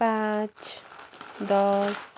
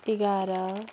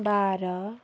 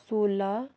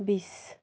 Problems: constant background noise